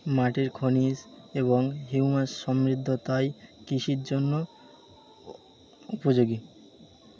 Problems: constant background noise